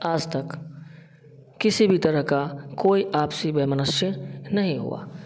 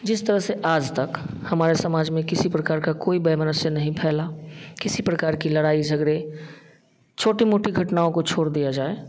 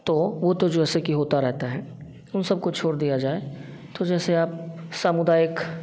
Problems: none marked